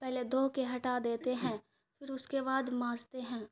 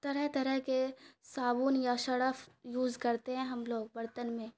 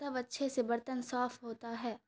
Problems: none marked